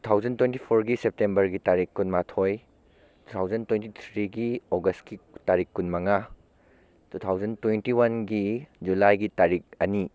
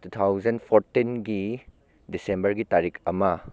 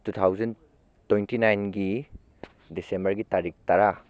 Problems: background conversations at intervals